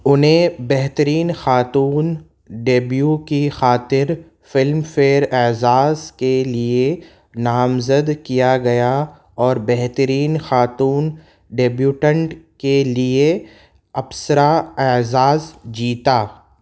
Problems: background sounds at intervals